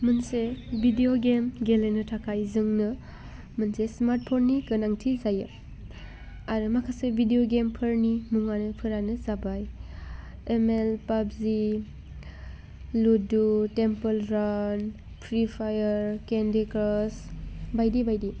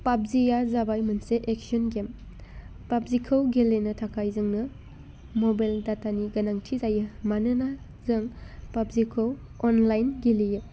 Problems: constant background noise